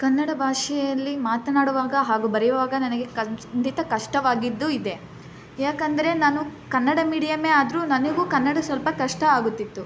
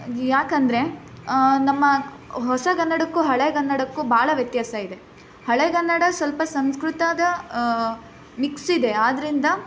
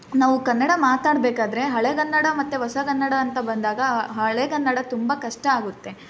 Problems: background sounds at intervals